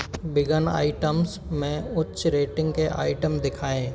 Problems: constant background noise, background conversations at intervals